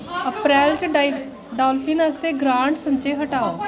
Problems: constant background noise